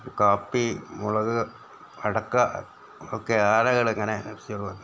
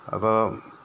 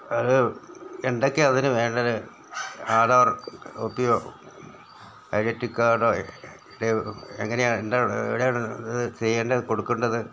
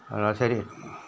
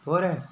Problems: background sounds at intervals, background conversations at intervals